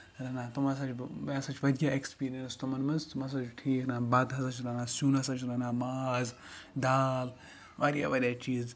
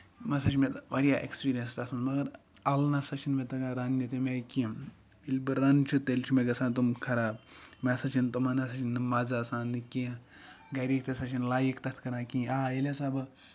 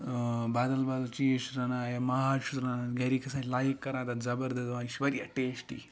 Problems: background sounds at intervals, background conversations at intervals